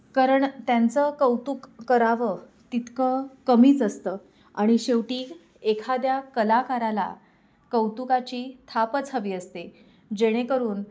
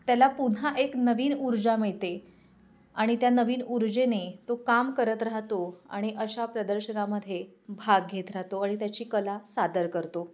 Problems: constant background noise, background conversations at intervals